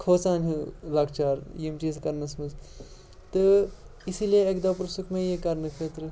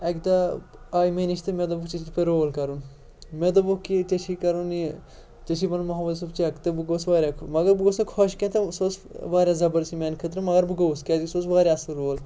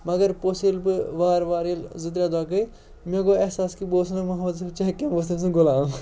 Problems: background sounds at intervals, background conversations at intervals